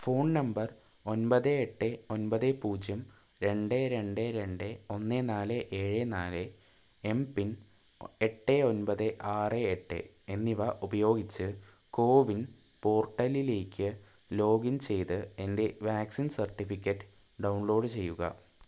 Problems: low volume